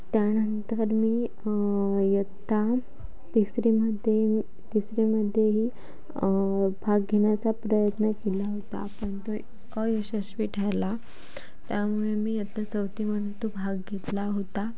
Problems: constant background noise